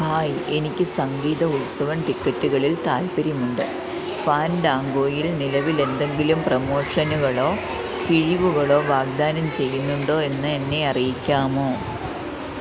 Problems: constant background noise